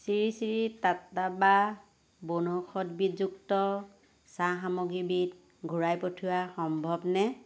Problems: constant background noise